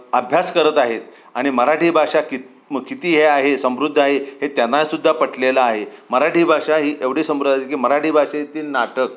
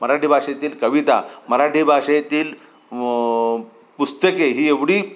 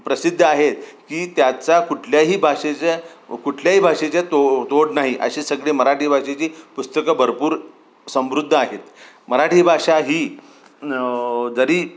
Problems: constant background noise